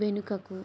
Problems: low volume